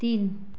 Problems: none marked